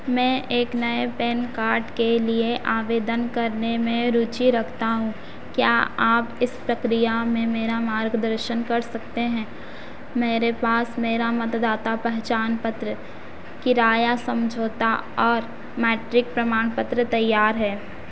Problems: constant background noise